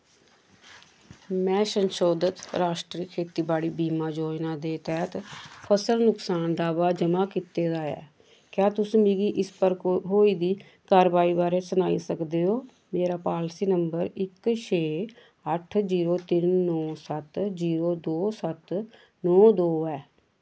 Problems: none marked